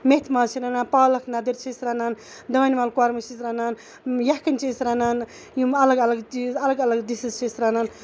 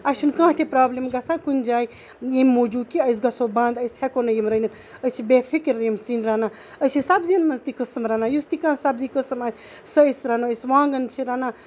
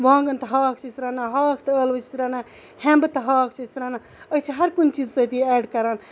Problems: none marked